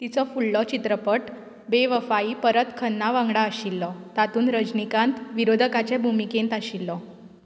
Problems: none marked